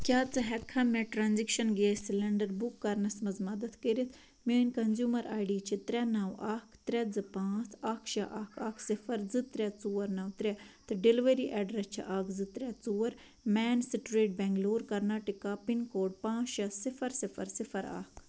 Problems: none marked